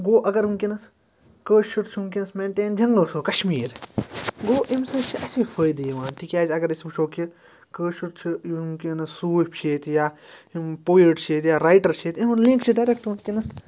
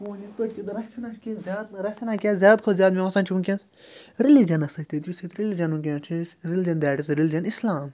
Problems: background sounds at intervals